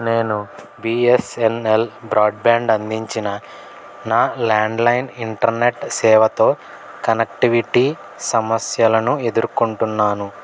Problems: none marked